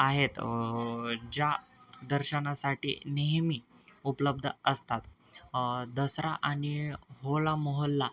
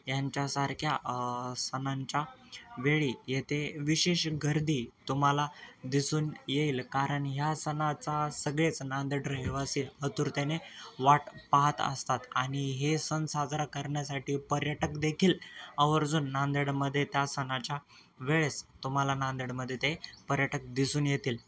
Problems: constant background noise, background conversations at intervals